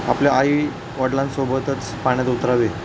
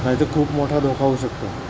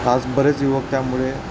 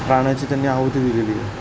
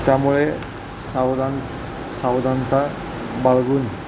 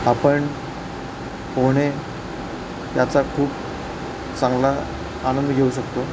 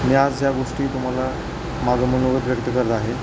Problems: constant background noise